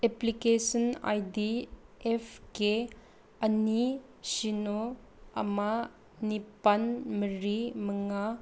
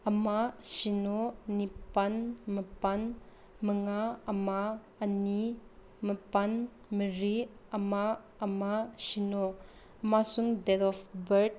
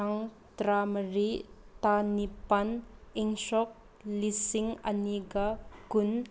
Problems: none marked